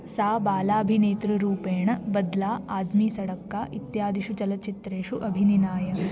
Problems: none marked